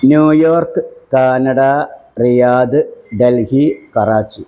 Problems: background sounds at intervals